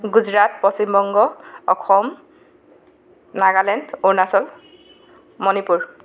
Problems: background sounds at intervals, background conversations at intervals